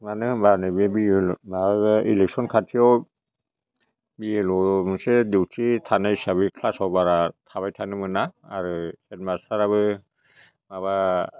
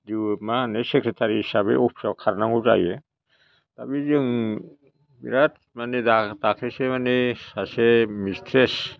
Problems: none marked